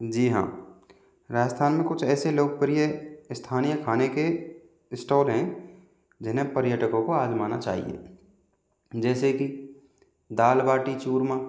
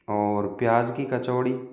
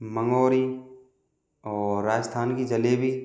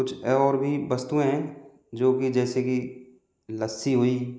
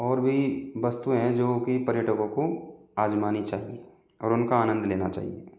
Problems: echo